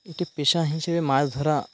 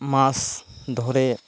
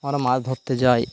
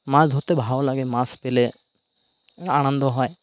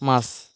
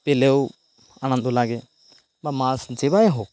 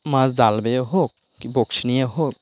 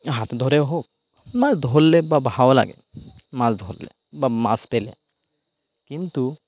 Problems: none marked